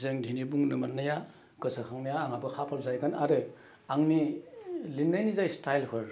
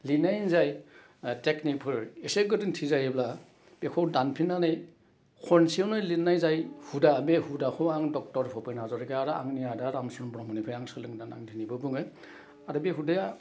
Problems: none marked